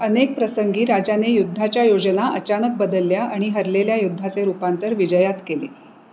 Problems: none marked